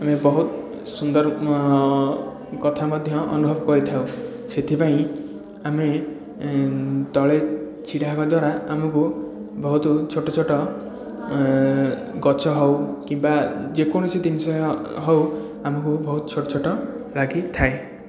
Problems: background sounds at intervals, continuous background conversations